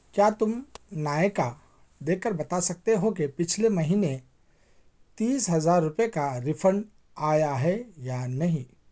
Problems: background sounds at intervals